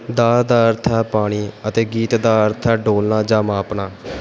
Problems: none marked